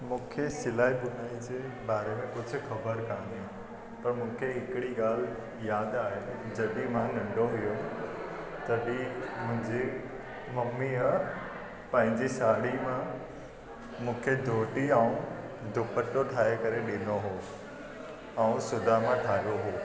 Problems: constant background noise, echo